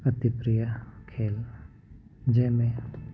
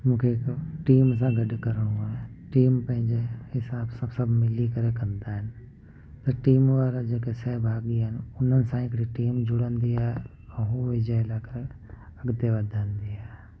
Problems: constant background noise